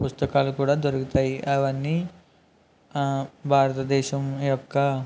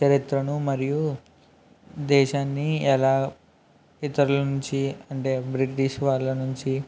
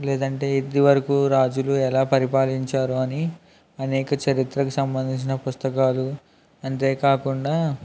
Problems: background sounds at intervals